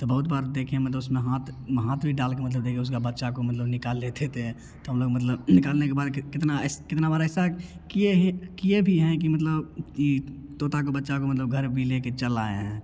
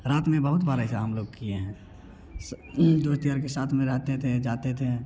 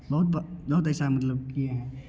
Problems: none marked